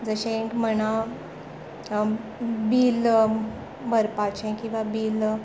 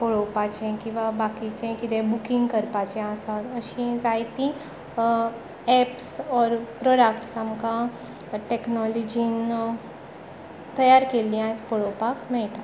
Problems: constant background noise